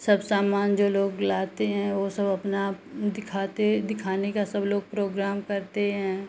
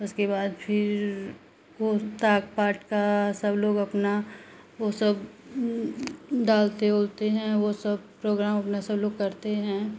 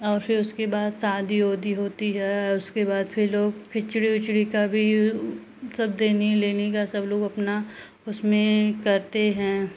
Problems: constant background noise